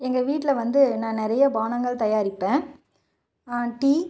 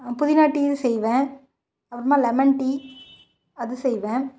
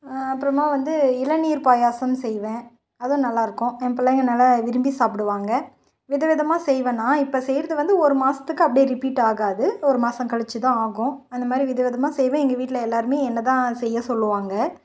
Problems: none marked